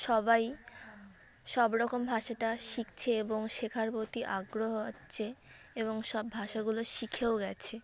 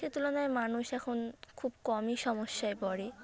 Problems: constant background noise, background conversations at intervals